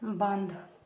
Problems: none marked